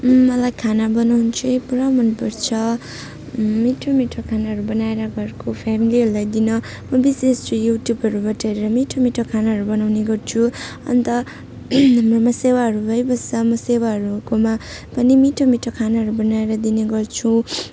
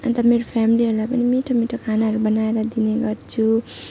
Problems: none marked